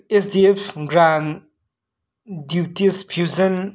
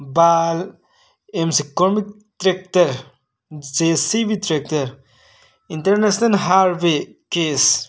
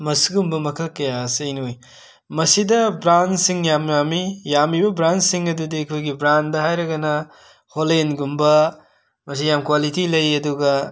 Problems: background sounds at intervals